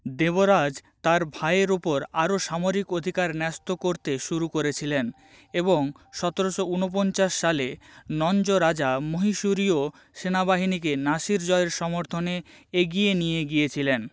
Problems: none marked